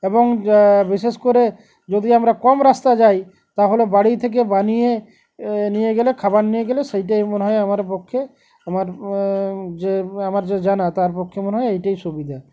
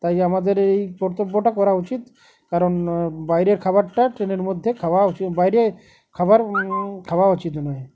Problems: constant background noise